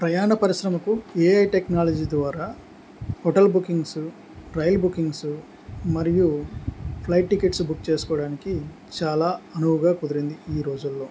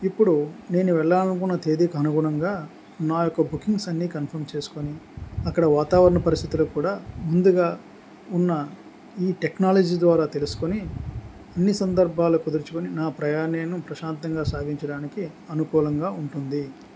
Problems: none marked